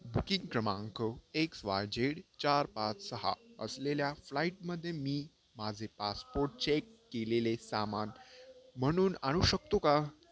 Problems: constant background noise, low volume